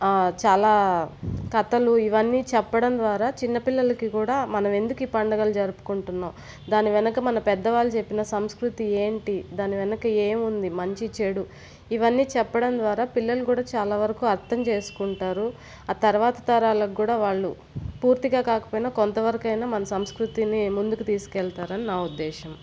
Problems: constant background noise